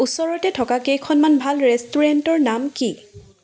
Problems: constant background noise